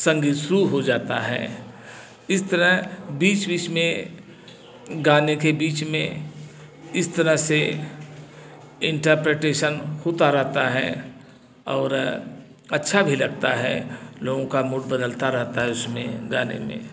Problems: constant background noise, background conversations at intervals